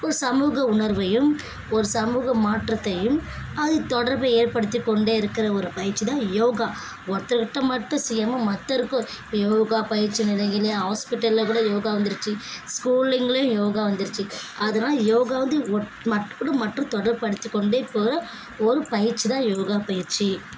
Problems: background sounds at intervals, background conversations at intervals